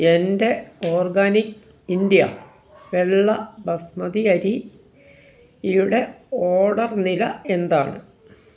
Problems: background sounds at intervals